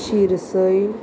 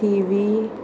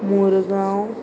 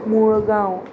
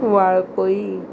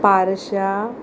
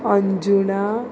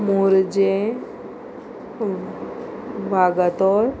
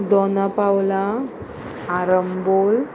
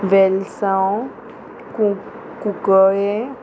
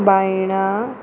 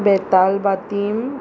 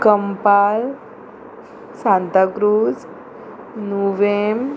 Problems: constant background noise